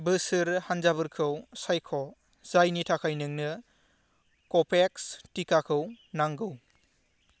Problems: constant background noise